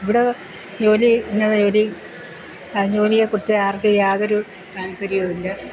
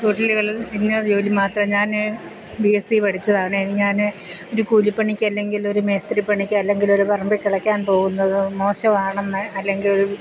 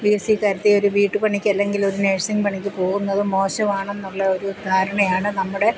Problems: constant background noise